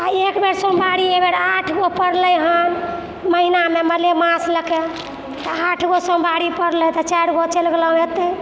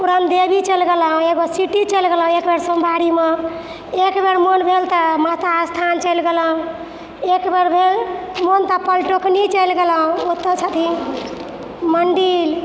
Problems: background sounds at intervals